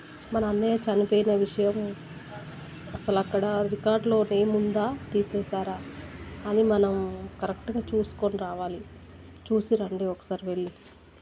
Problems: low volume